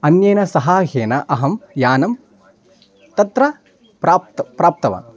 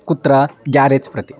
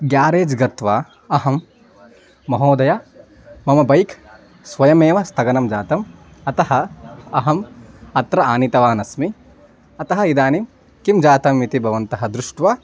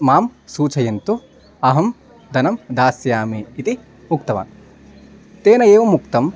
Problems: background sounds at intervals